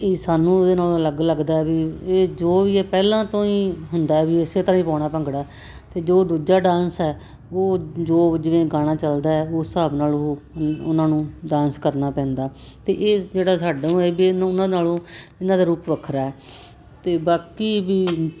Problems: constant background noise